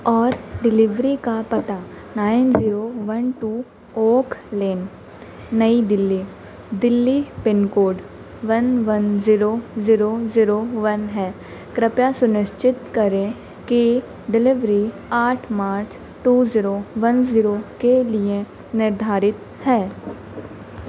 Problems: none marked